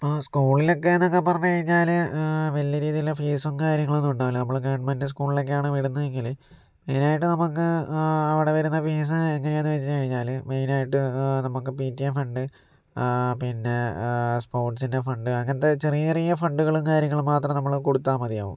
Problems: none marked